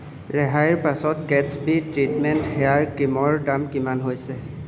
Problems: constant background noise